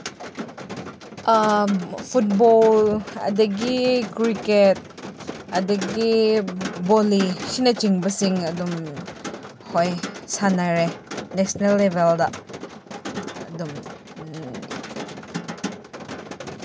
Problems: constant background noise